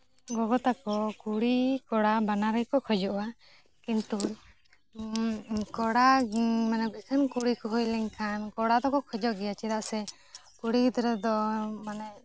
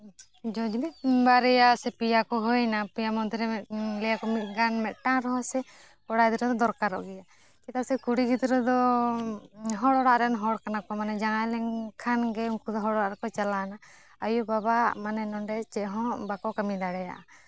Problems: none marked